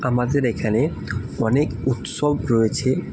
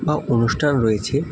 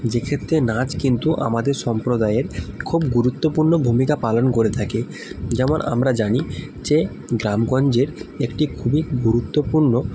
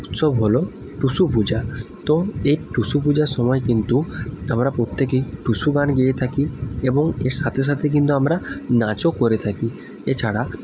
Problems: constant background noise